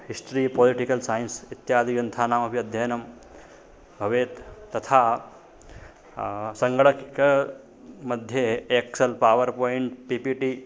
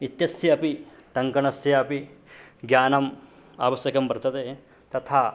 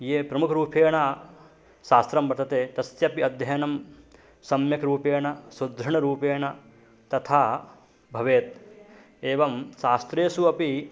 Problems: none marked